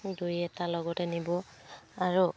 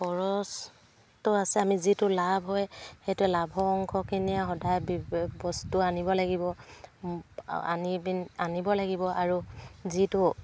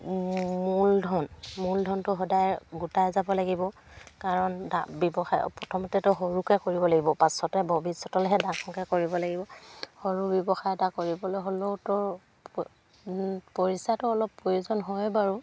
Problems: none marked